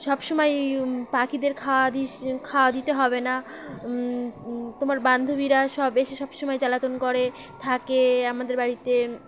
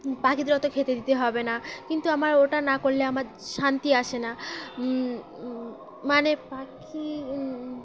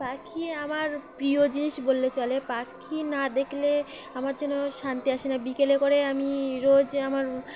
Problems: constant background noise, background conversations at intervals